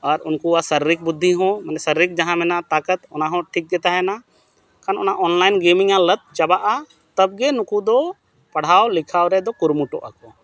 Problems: background sounds at intervals